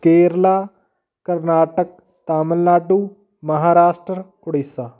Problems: background conversations at intervals